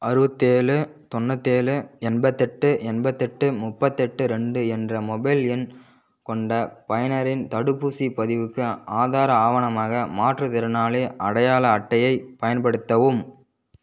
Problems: none marked